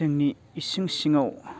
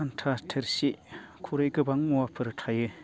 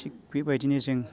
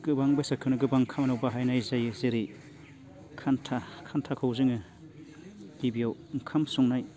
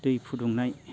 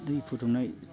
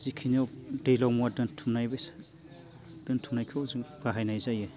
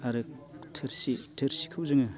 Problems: none marked